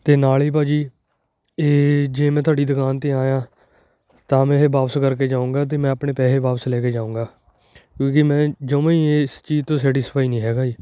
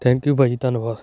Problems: none marked